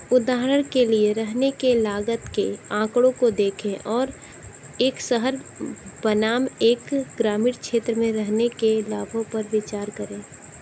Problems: none marked